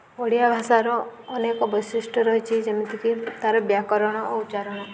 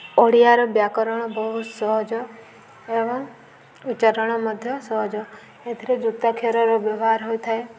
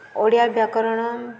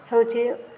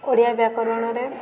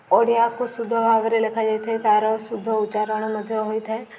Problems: none marked